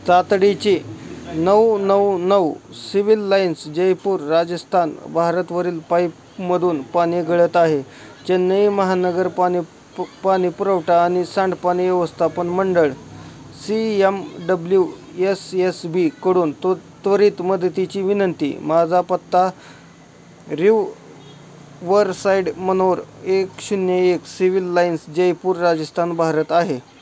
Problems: constant background noise